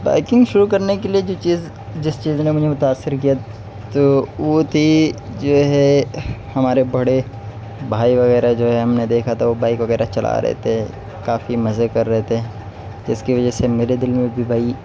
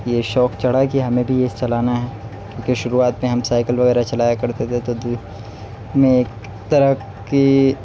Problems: none marked